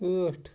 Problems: none marked